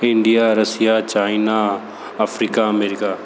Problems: constant background noise